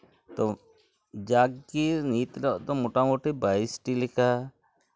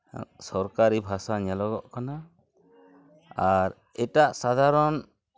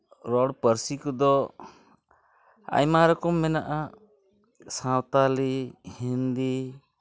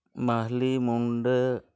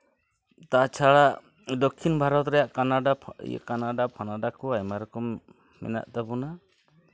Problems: constant background noise, continuous background conversations